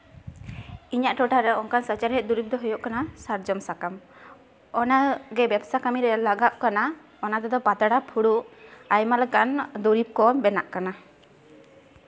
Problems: none marked